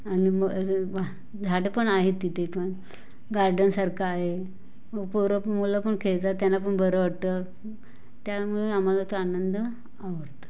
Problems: background sounds at intervals